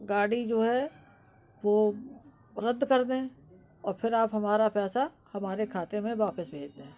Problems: constant background noise